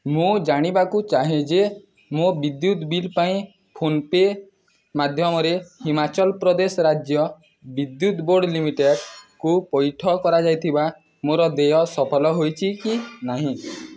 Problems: background sounds at intervals